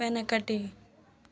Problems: none marked